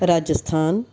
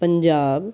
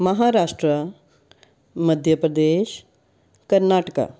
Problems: background sounds at intervals